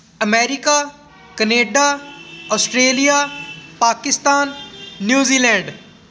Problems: constant background noise, background conversations at intervals